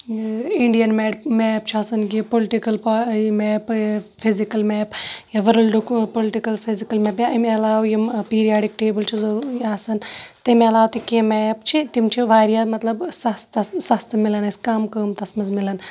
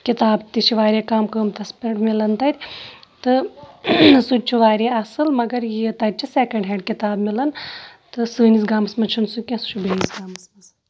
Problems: none marked